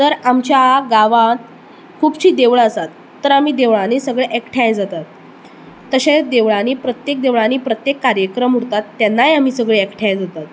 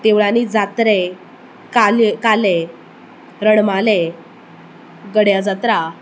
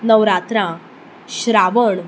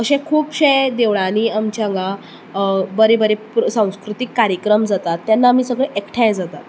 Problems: none marked